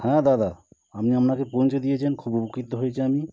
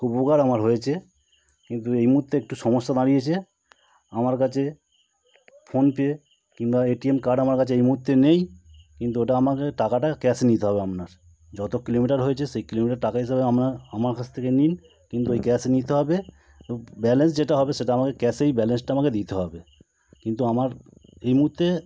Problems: none marked